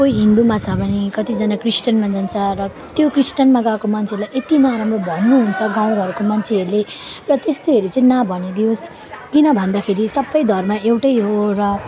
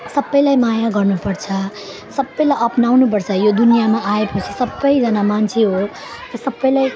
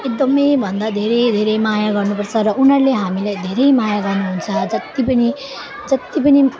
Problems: continuous background conversations